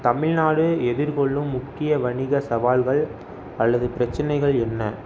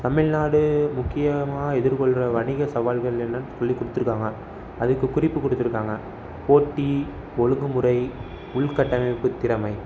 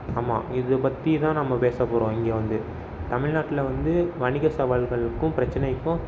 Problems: background sounds at intervals